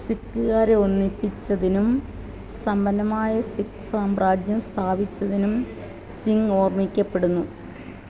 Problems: constant background noise